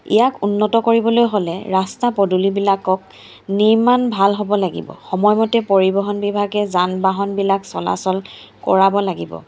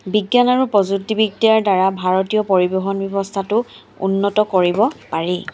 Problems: constant background noise